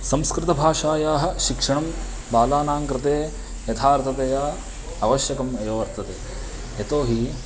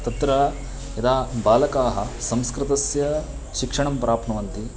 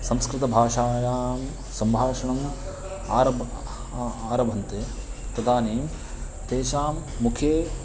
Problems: constant background noise